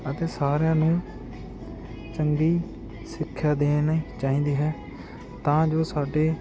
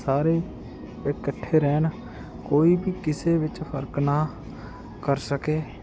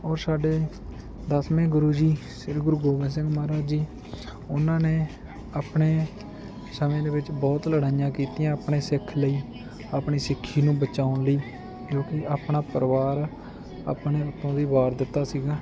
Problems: constant background noise